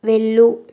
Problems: constant background noise